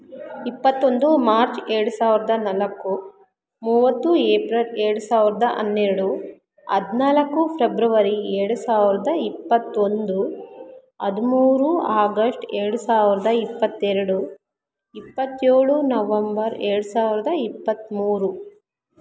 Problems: background sounds at intervals